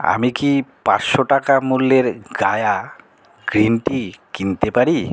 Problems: none marked